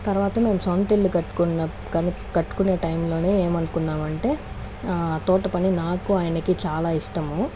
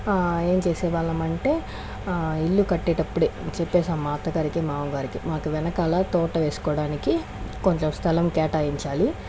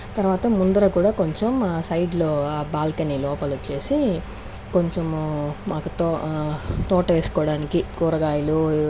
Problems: background sounds at intervals